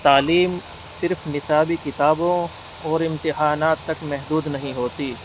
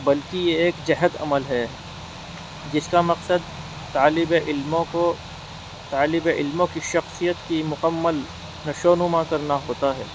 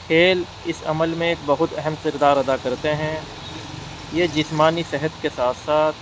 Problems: constant background noise